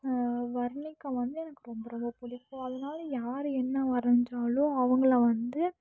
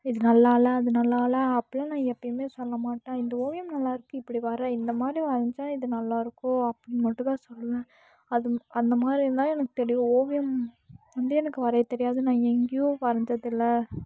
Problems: low volume